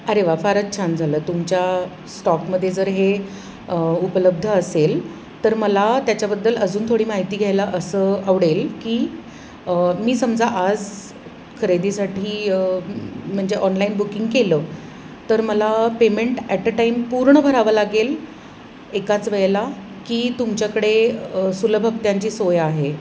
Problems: none marked